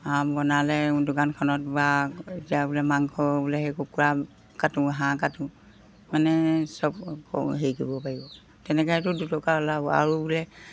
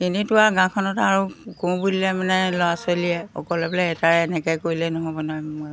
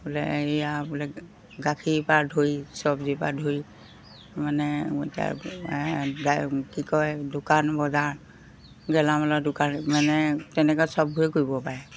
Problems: background sounds at intervals